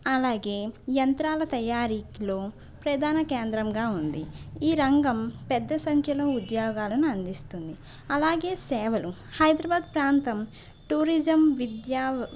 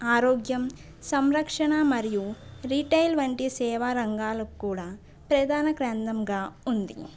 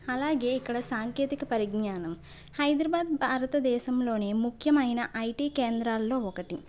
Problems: none marked